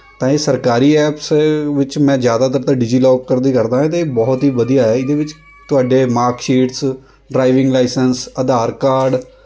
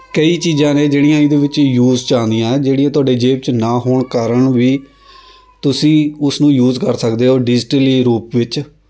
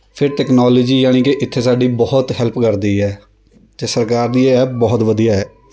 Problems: constant background noise